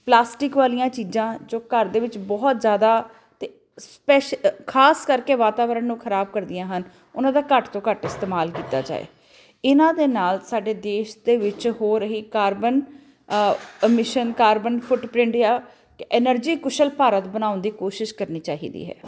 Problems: constant background noise